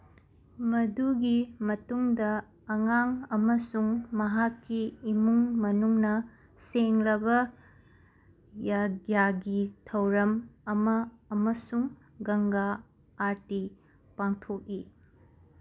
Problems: none marked